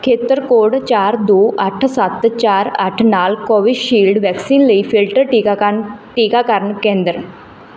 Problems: background sounds at intervals